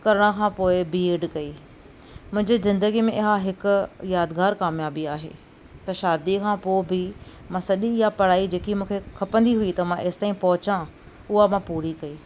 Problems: none marked